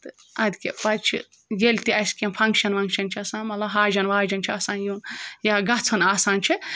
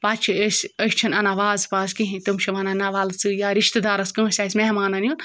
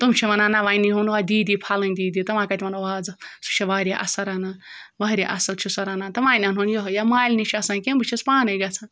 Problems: background sounds at intervals